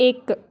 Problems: background conversations at intervals